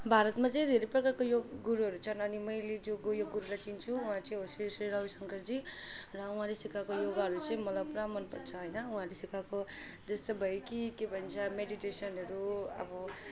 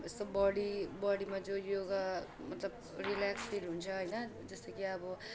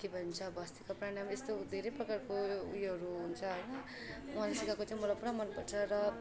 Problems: constant background noise, continuous background conversations